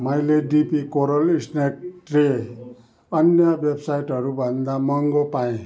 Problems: none marked